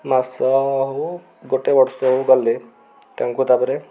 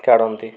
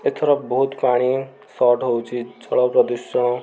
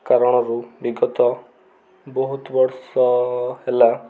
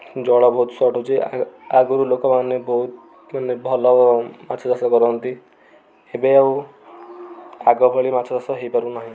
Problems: none marked